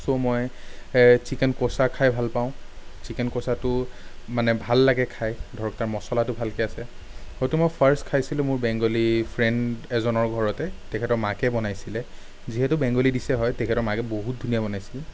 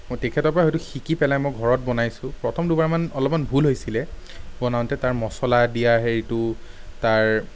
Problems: none marked